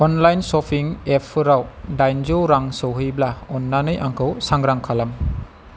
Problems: constant background noise